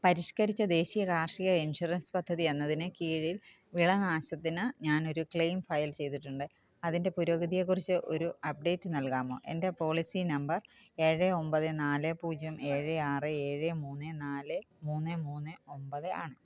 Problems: none marked